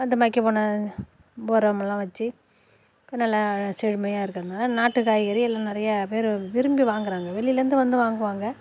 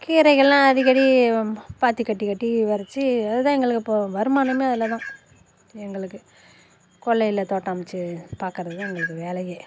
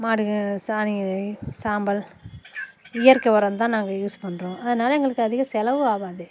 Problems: constant background noise